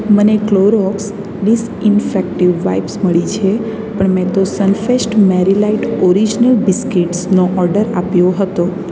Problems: none marked